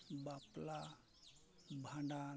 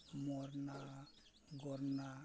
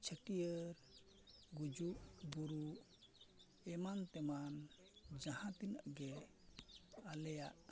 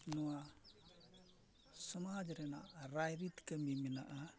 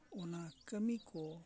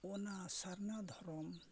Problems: low volume